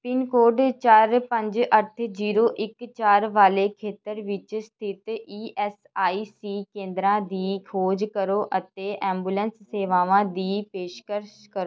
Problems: none marked